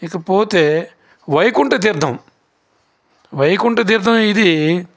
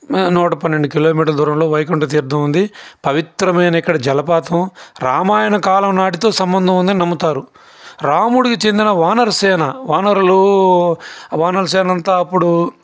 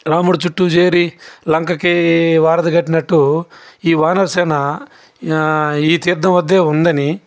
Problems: constant background noise